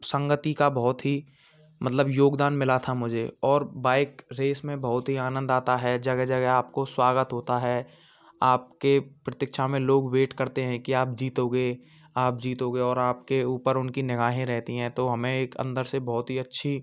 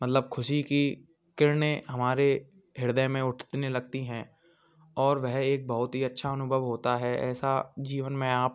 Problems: constant background noise, background conversations at intervals